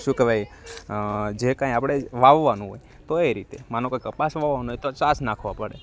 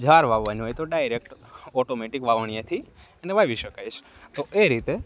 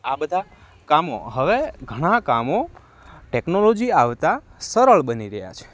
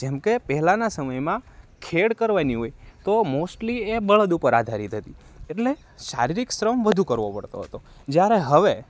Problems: background sounds at intervals